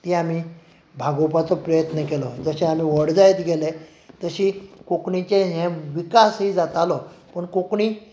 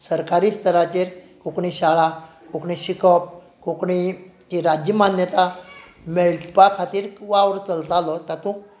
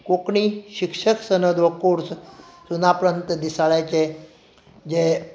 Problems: none marked